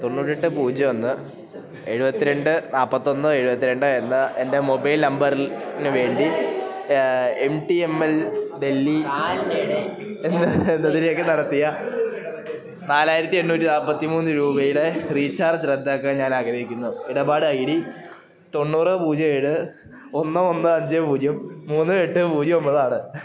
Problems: continuous background conversations, low volume